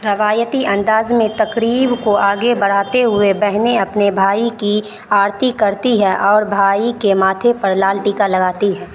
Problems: constant background noise